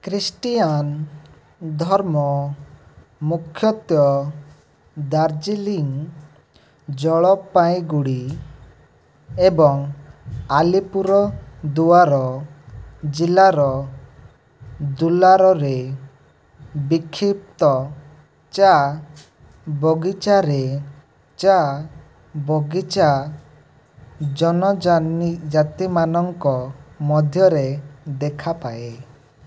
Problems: background sounds at intervals